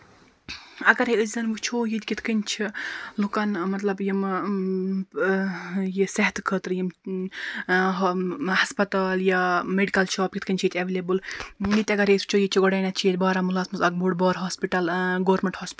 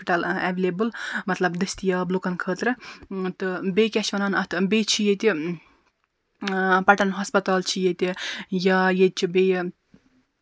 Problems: none marked